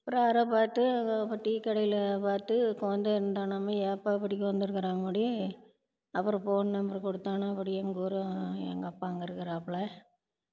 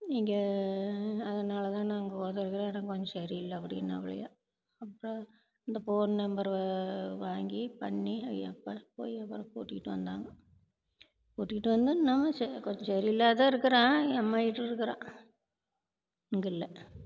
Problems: background sounds at intervals